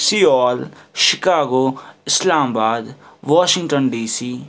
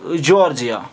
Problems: background sounds at intervals